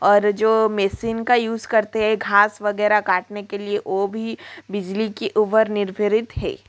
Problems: constant background noise